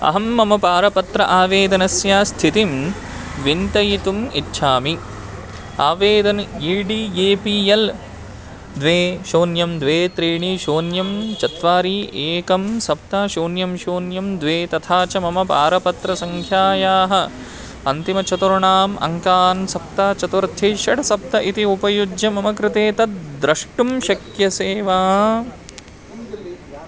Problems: constant background noise, continuous background conversations